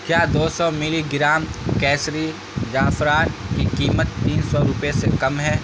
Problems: constant background noise